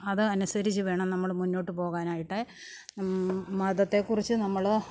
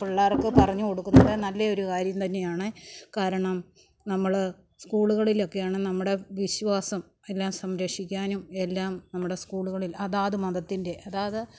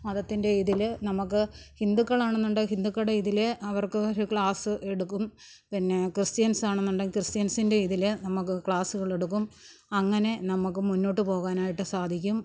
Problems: background sounds at intervals, low volume